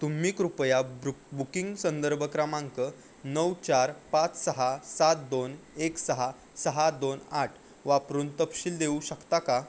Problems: constant background noise